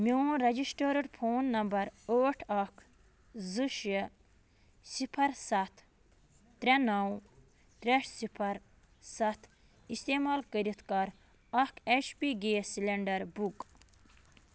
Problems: constant background noise